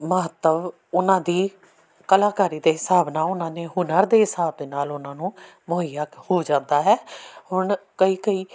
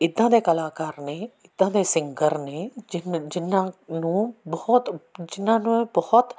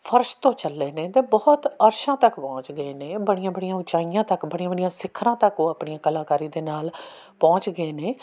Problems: background sounds at intervals